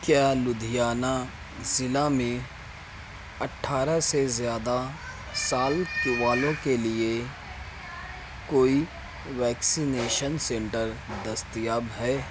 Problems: none marked